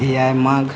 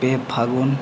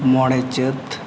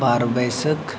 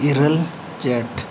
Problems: none marked